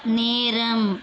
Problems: constant background noise